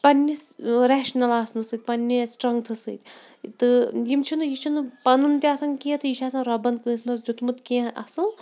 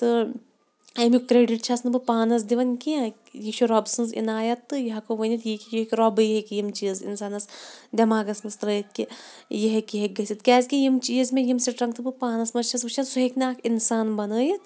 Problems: background sounds at intervals